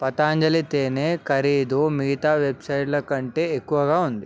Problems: none marked